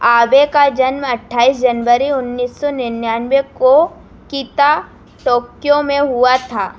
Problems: background sounds at intervals